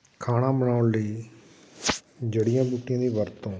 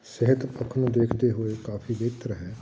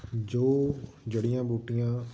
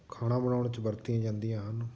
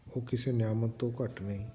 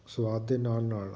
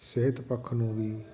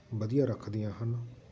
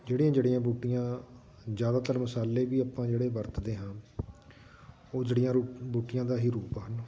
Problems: constant background noise, background conversations at intervals